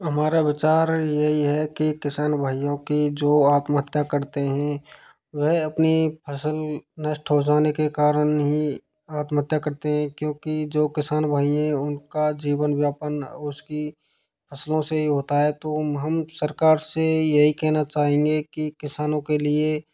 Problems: none marked